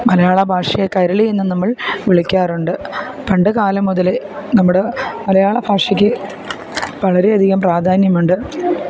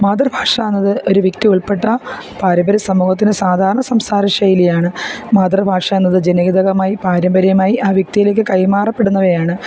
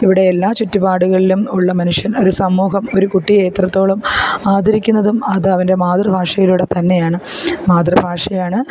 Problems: background sounds at intervals